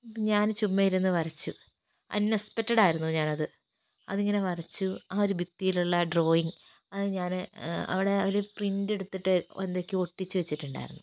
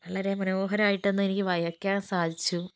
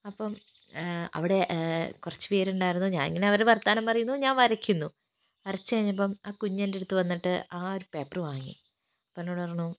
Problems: background sounds at intervals, low volume